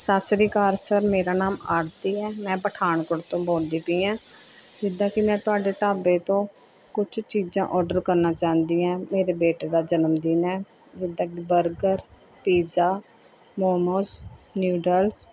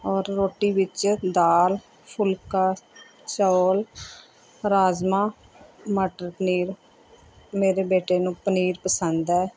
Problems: background sounds at intervals